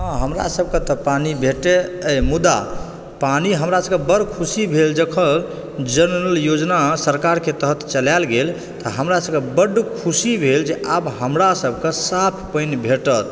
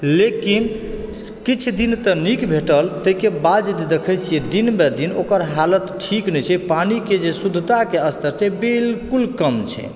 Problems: background sounds at intervals